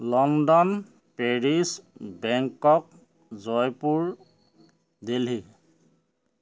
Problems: background sounds at intervals